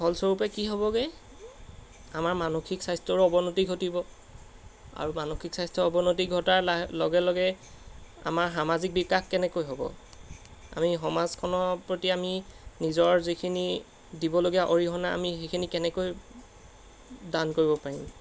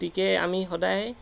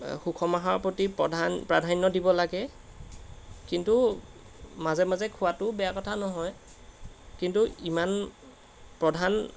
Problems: constant background noise